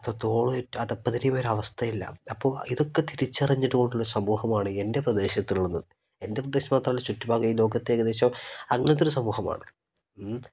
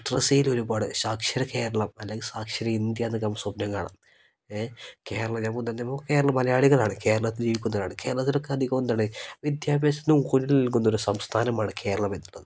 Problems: none marked